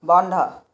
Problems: constant background noise